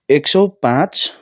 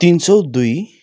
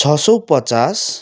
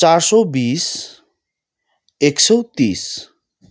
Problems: none marked